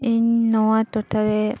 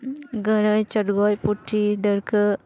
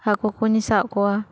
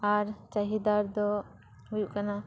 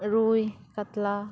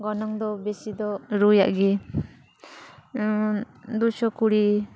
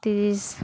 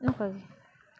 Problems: none marked